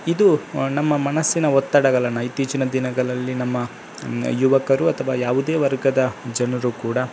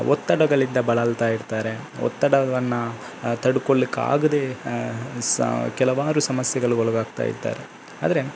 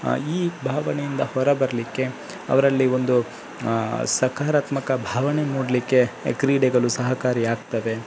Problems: constant background noise